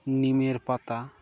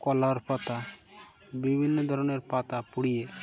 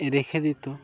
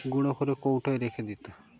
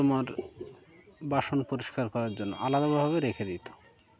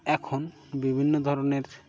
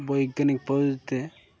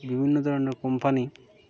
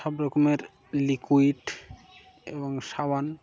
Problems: background sounds at intervals